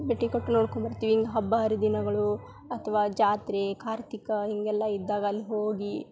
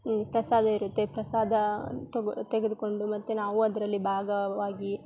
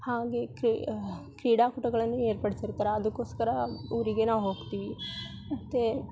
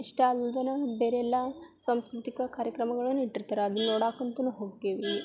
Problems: none marked